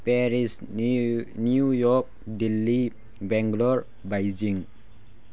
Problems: none marked